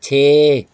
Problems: background sounds at intervals